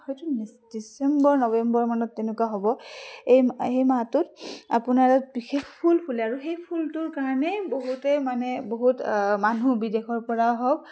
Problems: background sounds at intervals, background conversations at intervals